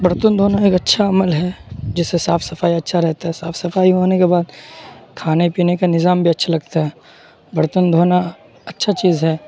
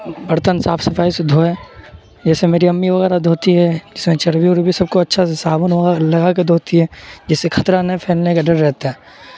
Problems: constant background noise